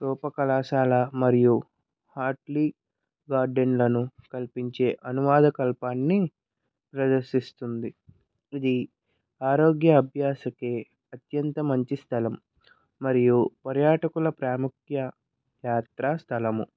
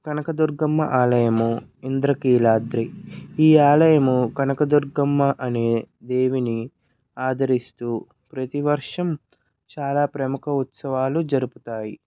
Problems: none marked